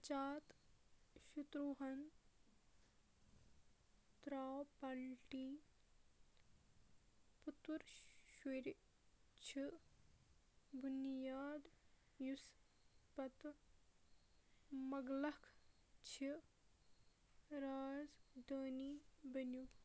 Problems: background sounds at intervals, low volume